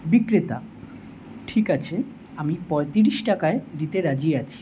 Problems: none marked